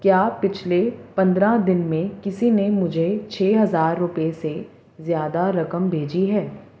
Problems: constant background noise